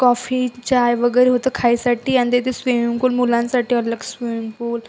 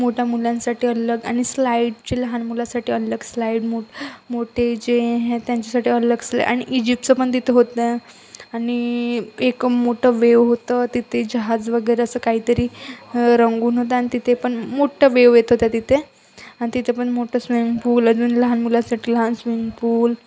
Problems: constant background noise, background conversations at intervals